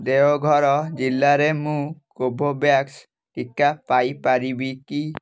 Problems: none marked